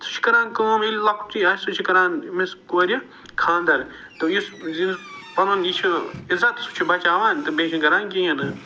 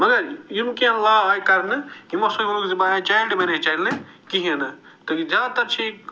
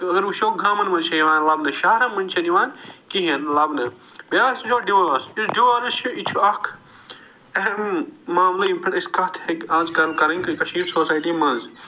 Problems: none marked